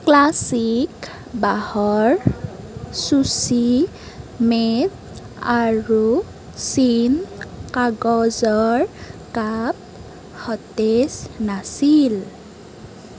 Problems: constant background noise